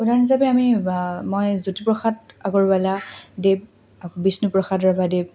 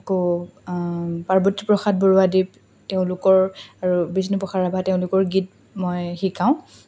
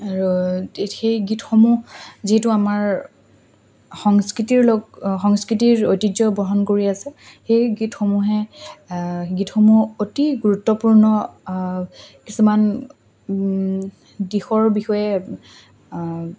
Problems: constant background noise, background conversations at intervals